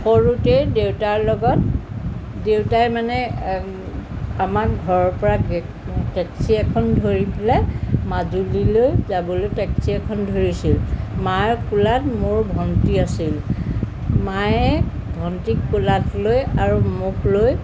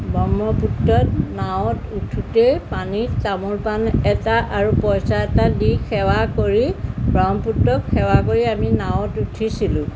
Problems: constant background noise